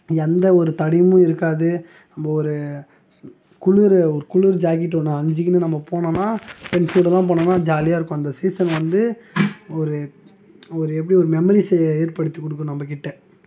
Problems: background sounds at intervals